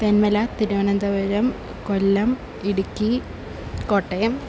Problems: constant background noise